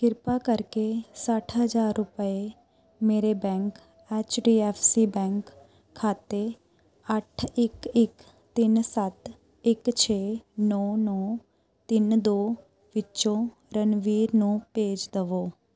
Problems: continuous background conversations